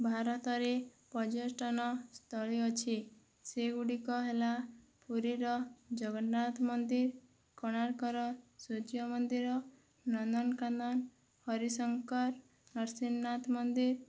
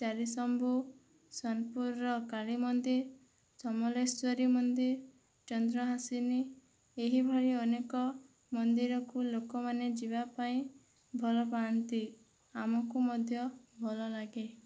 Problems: low volume